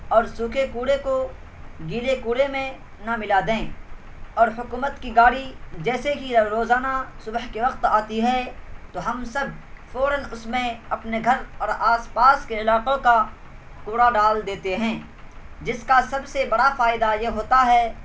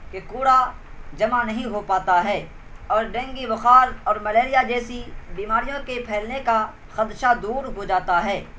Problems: constant background noise